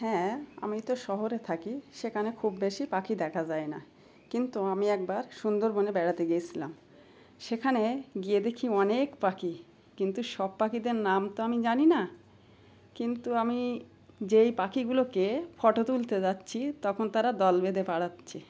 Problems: background sounds at intervals